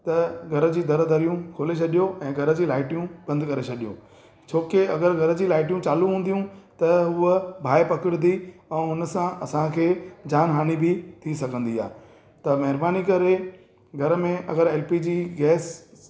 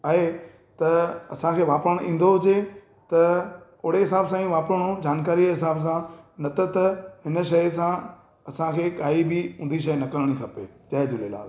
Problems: echo